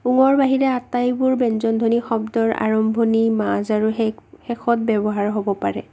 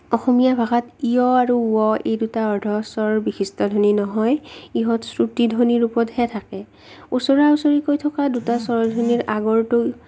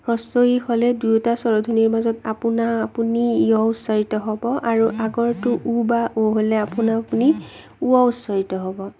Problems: none marked